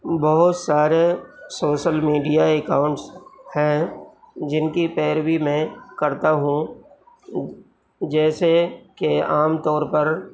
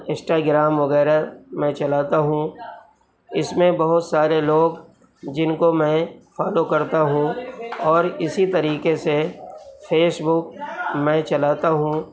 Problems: constant background noise